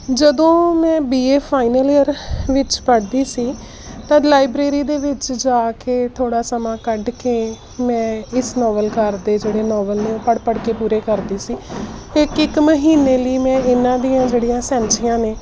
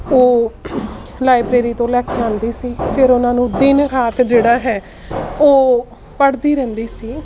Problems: constant background noise